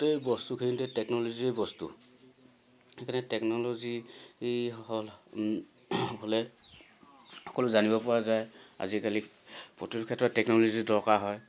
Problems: none marked